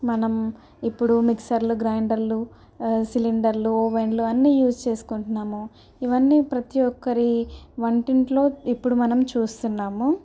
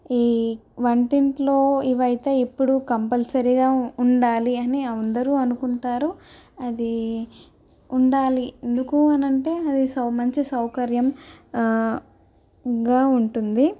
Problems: none marked